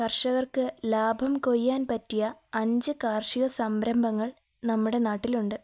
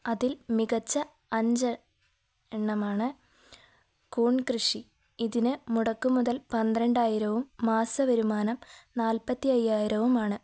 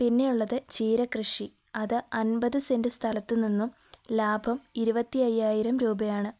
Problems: none marked